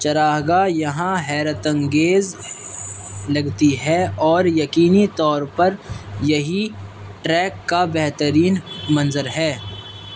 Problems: constant background noise